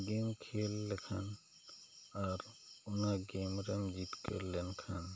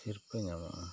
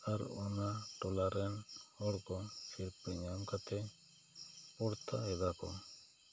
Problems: low volume